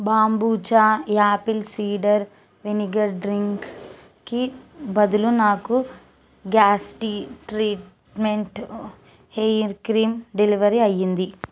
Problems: constant background noise